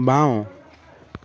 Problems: continuous background conversations